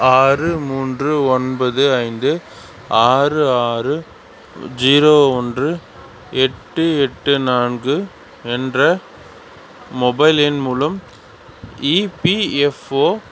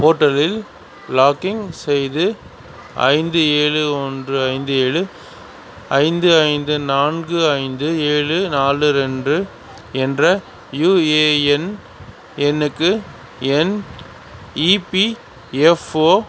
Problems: constant background noise